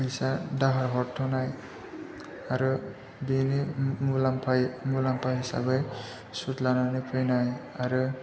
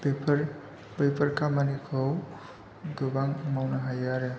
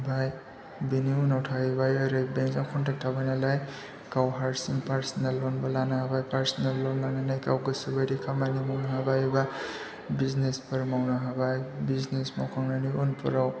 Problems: low volume